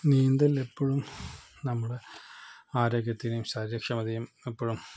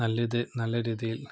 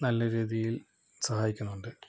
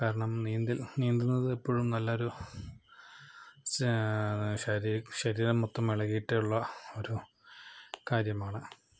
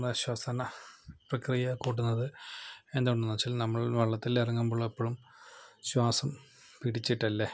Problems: low volume